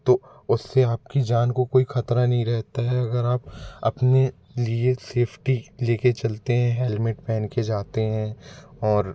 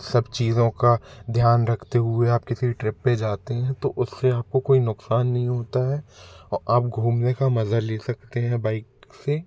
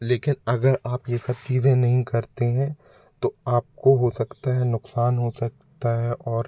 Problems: background sounds at intervals